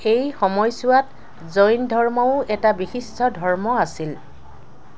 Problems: constant background noise